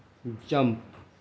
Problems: constant background noise, low volume